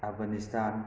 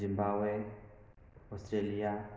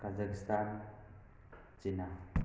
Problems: constant background noise